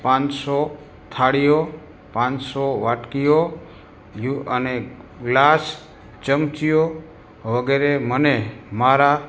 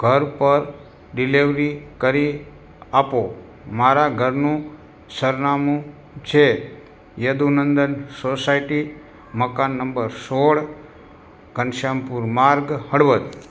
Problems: constant background noise